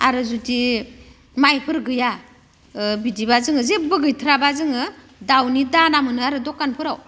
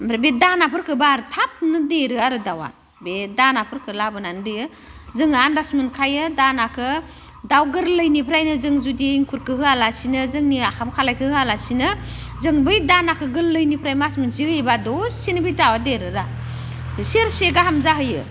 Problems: none marked